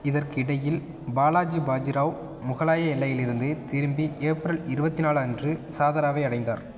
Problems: constant background noise